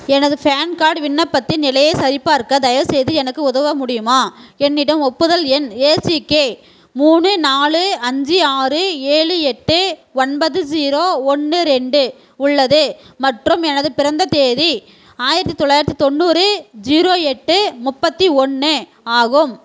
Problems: none marked